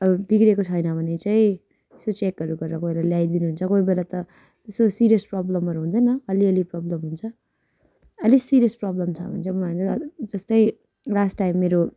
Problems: constant background noise